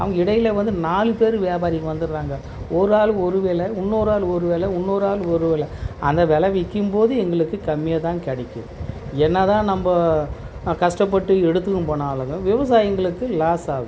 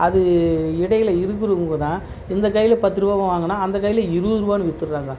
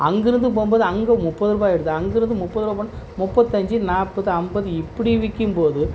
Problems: constant background noise